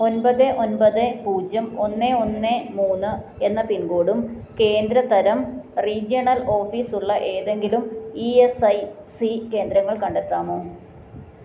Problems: none marked